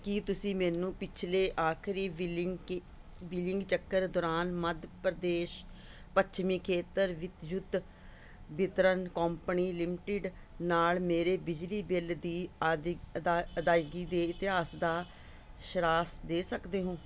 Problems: none marked